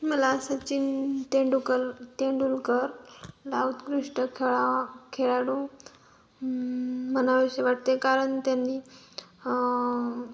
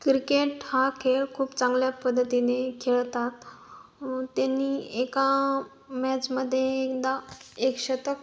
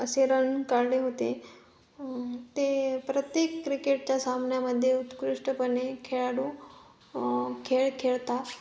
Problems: constant background noise